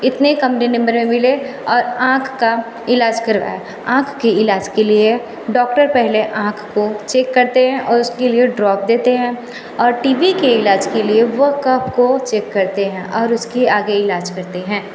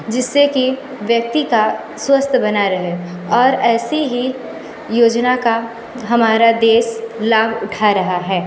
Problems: constant background noise